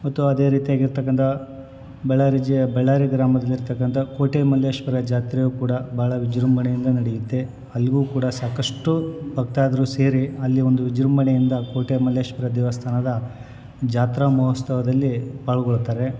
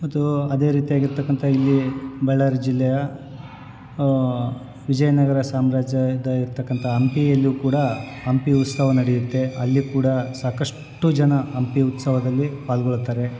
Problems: background sounds at intervals